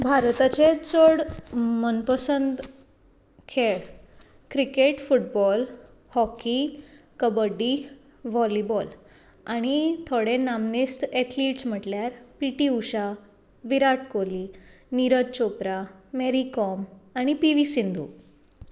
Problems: constant background noise